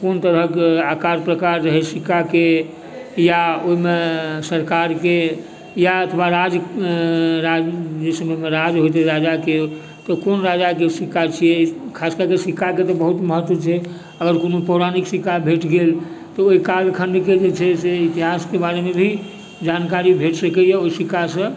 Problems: background sounds at intervals, background conversations at intervals